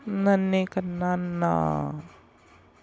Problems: continuous background conversations